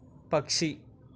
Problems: none marked